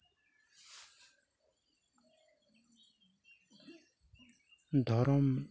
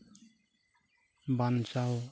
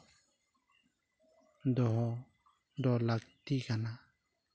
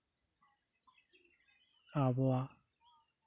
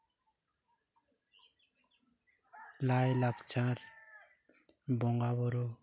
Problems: background sounds at intervals, background conversations at intervals, low volume